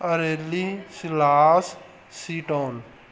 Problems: background sounds at intervals